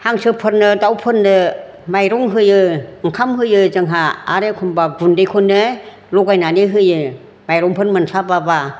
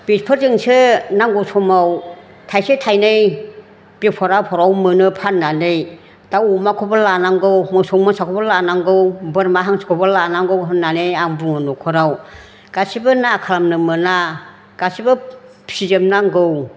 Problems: none marked